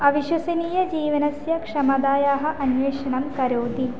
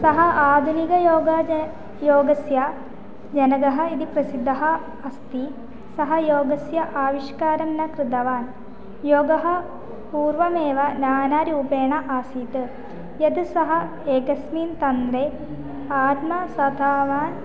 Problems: constant background noise